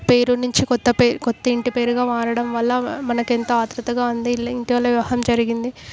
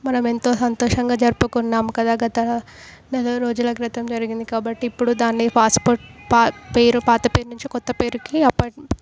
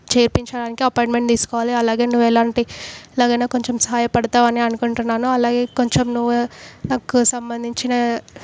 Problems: background sounds at intervals